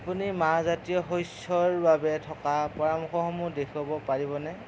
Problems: constant background noise